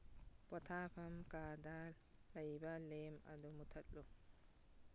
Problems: none marked